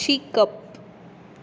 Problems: constant background noise